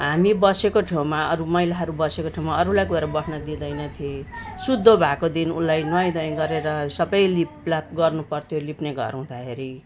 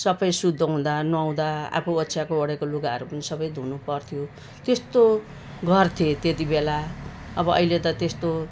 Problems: background sounds at intervals